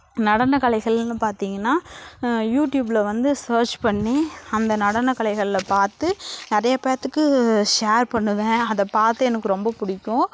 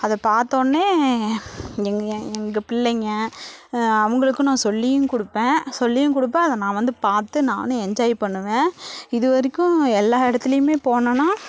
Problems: none marked